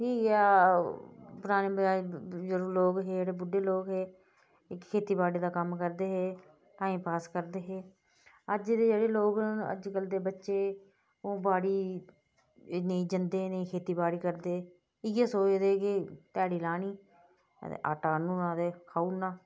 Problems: low volume